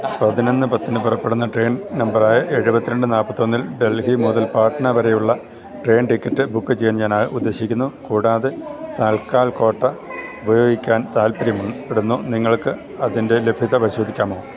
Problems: constant background noise